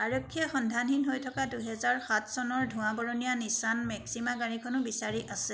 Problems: constant background noise